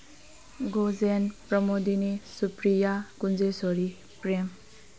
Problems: background sounds at intervals